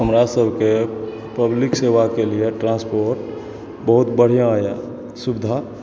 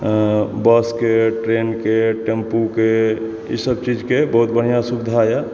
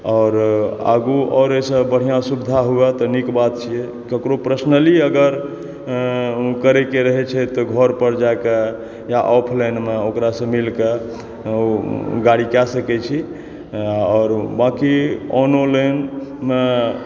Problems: background sounds at intervals, background conversations at intervals